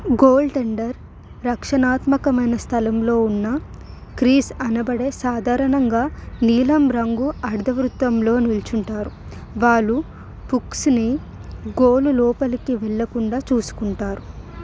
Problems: background sounds at intervals